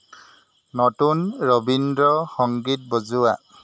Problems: constant background noise